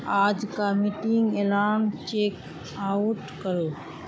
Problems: constant background noise